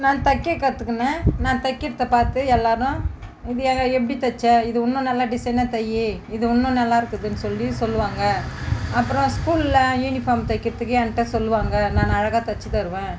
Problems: background sounds at intervals